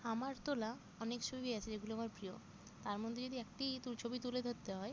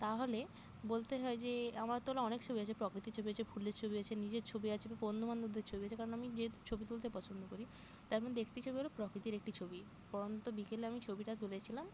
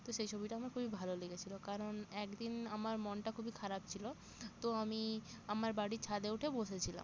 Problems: constant background noise